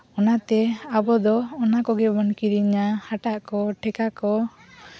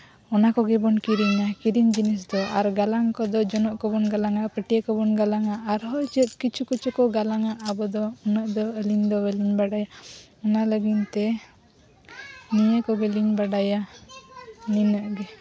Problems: background sounds at intervals, continuous background conversations